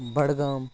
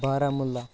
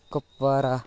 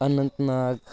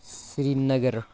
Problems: constant background noise, background conversations at intervals